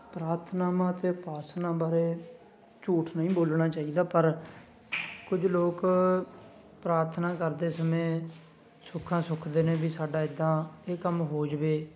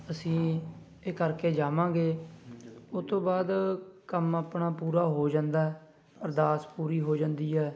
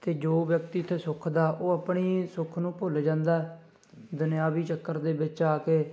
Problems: background sounds at intervals, background conversations at intervals